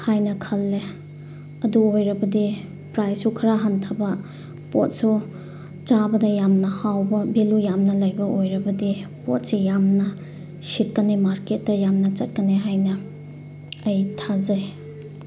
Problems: constant background noise